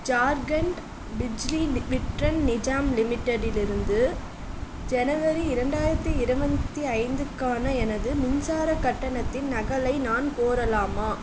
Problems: constant background noise